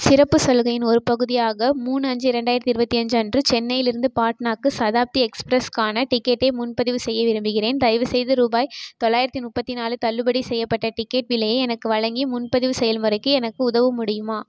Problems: constant background noise